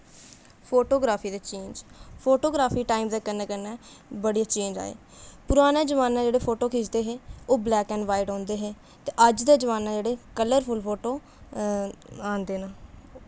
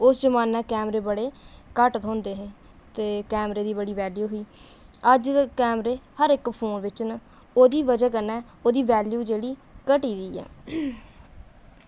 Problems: constant background noise